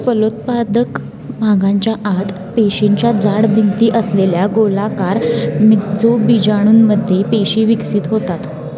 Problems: background sounds at intervals, continuous background conversations